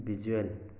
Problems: none marked